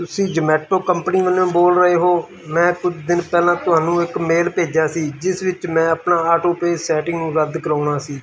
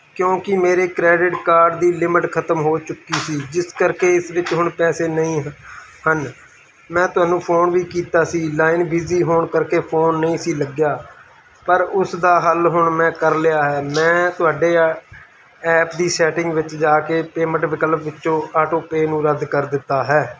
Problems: constant background noise